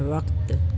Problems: constant background noise